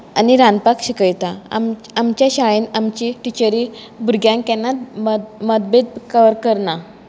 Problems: constant background noise